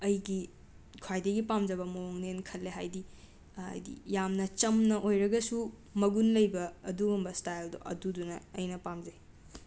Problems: background sounds at intervals